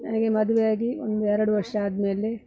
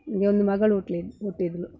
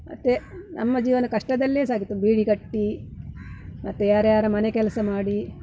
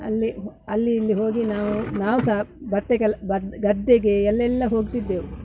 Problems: background sounds at intervals